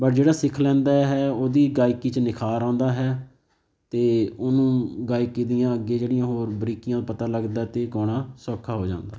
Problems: none marked